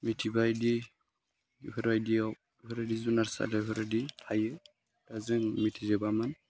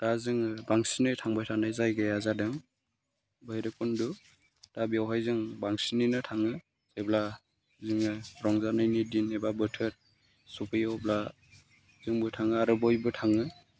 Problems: none marked